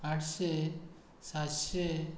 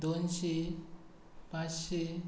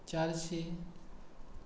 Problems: constant background noise